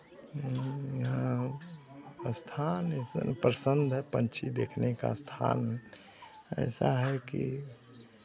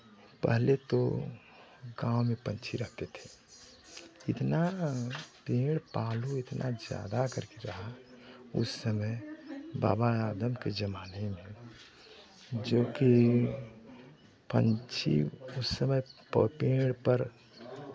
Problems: constant background noise, background conversations at intervals